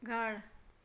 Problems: constant background noise